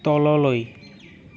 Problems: constant background noise